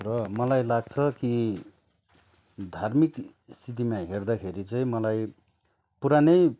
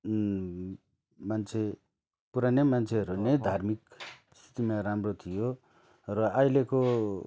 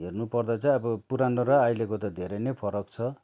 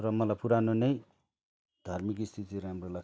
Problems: none marked